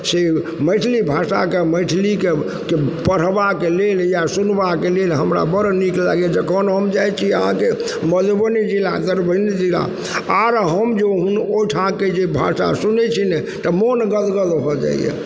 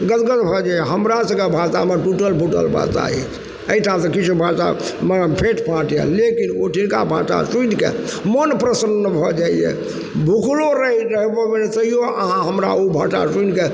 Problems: background sounds at intervals